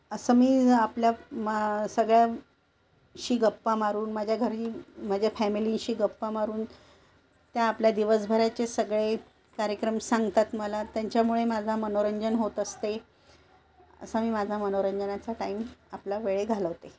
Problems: constant background noise